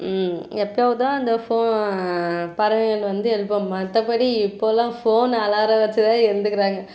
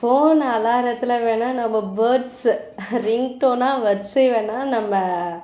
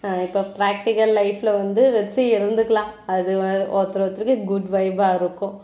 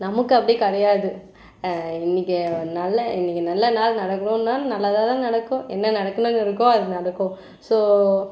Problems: background sounds at intervals